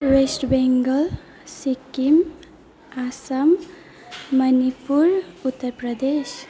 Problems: background sounds at intervals, background conversations at intervals